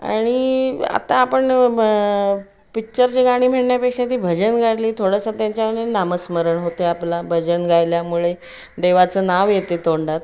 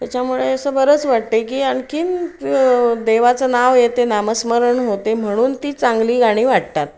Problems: background sounds at intervals